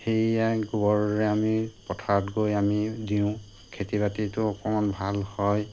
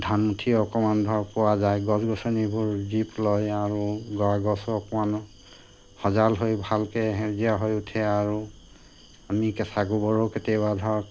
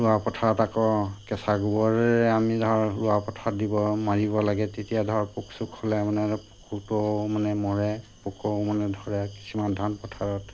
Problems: constant background noise